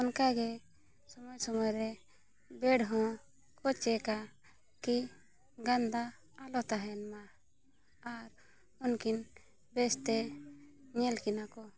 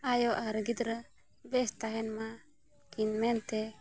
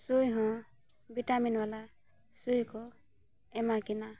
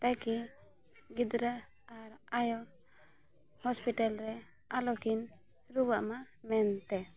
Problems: background sounds at intervals